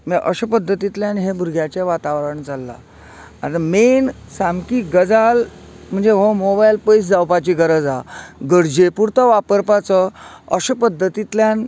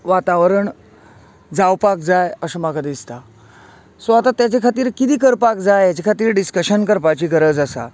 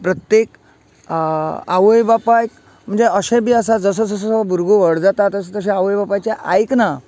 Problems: none marked